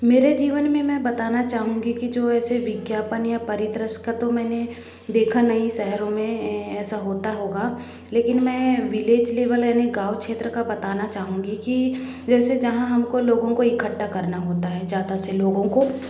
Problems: none marked